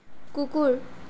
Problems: none marked